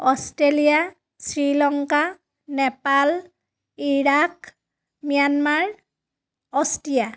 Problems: none marked